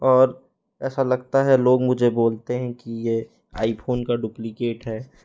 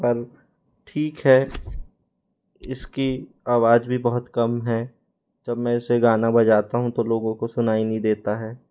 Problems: none marked